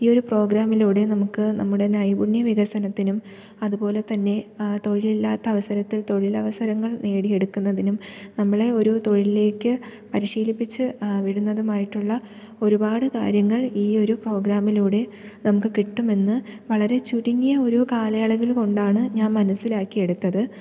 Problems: none marked